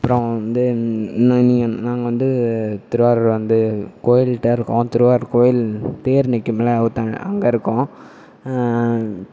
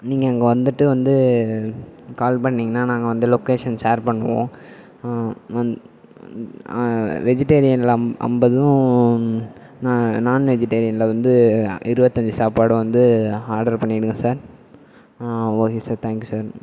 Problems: none marked